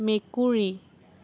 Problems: none marked